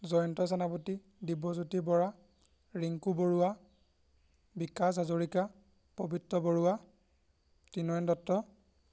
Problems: background sounds at intervals